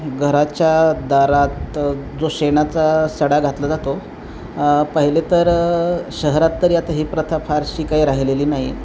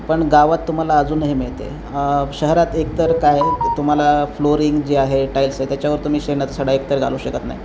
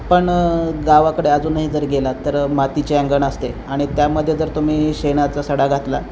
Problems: none marked